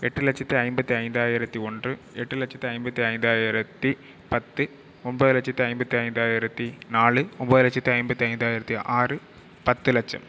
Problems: none marked